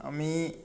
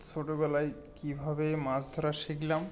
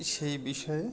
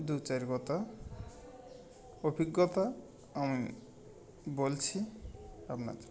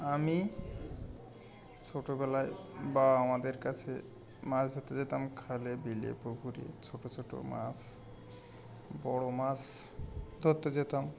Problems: constant background noise, continuous background conversations